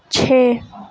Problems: constant background noise